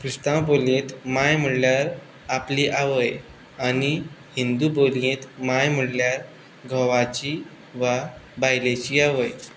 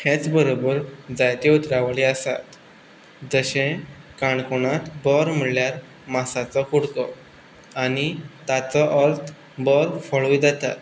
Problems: none marked